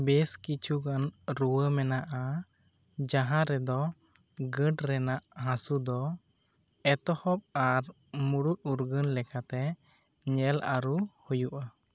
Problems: none marked